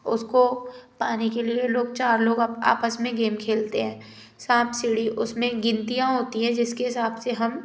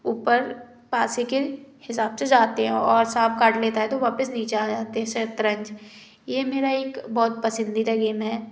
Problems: background sounds at intervals